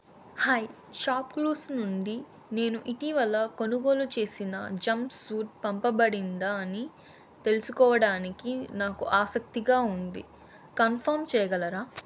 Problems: constant background noise